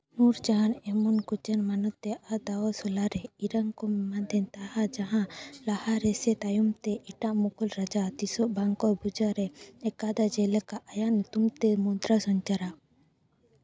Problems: background sounds at intervals, background conversations at intervals